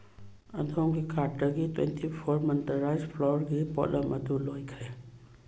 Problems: background sounds at intervals